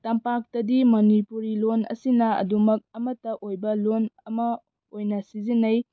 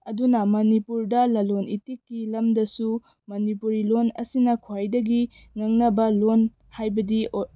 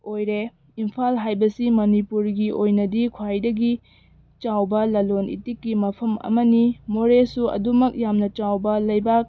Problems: background sounds at intervals